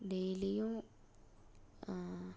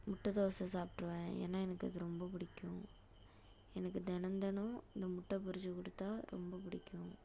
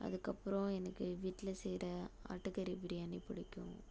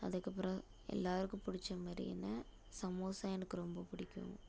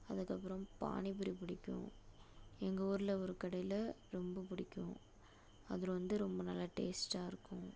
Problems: low volume